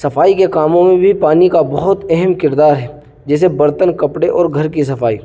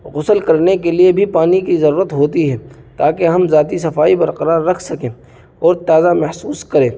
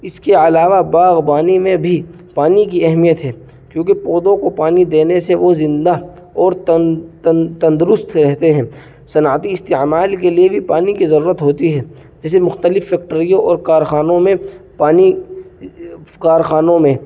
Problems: constant background noise